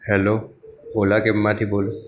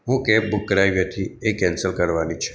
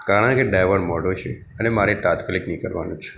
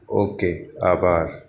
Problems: background sounds at intervals, background conversations at intervals